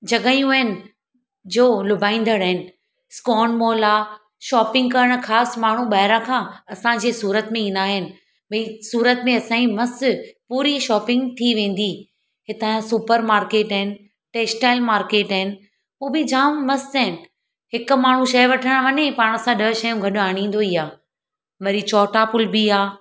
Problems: none marked